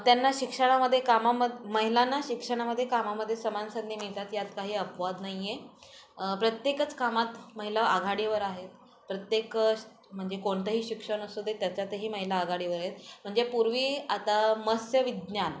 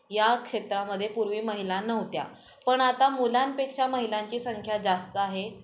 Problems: constant background noise, background conversations at intervals